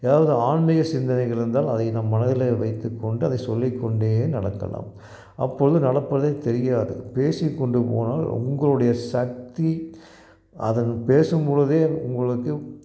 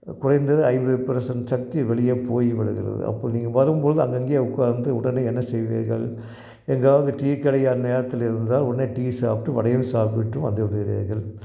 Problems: none marked